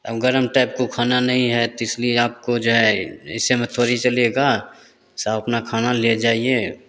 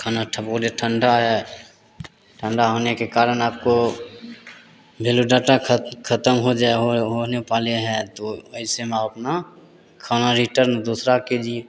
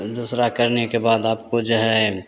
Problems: none marked